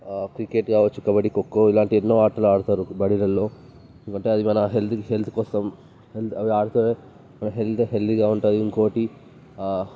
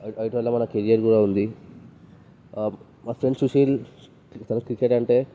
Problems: background sounds at intervals